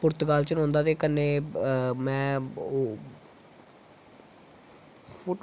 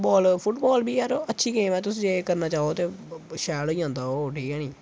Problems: constant background noise